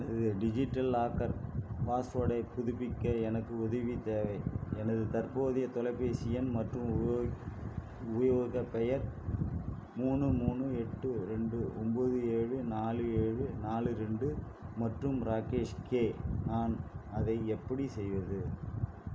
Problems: constant background noise, low volume